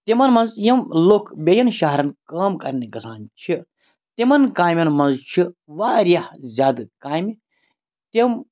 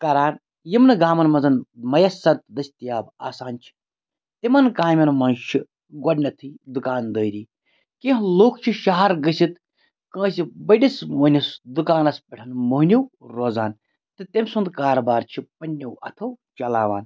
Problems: none marked